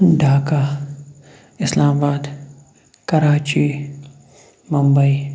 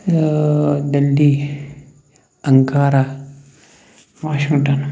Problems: none marked